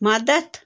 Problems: none marked